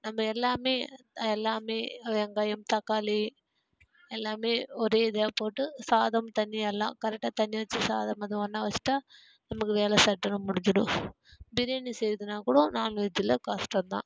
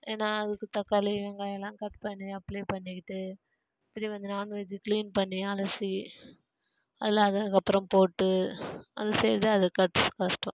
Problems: none marked